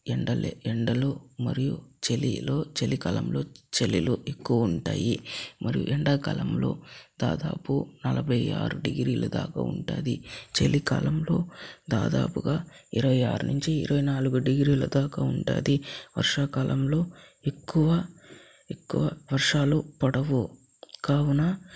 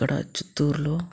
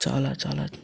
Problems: low volume